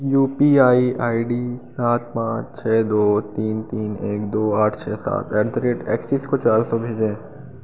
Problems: none marked